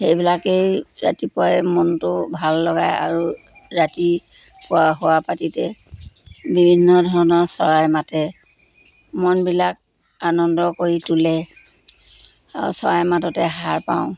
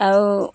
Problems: constant background noise